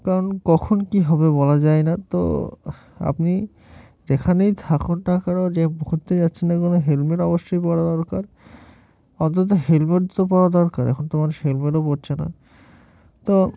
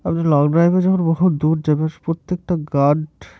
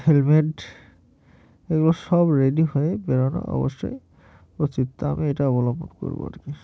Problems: background sounds at intervals